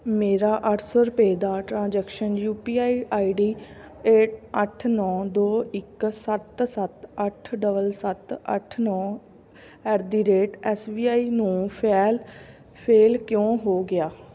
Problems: none marked